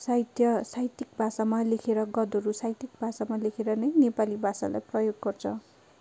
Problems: constant background noise